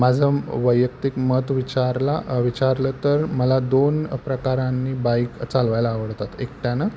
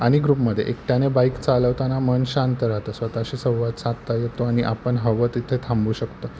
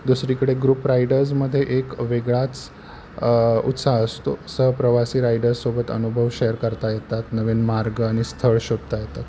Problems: none marked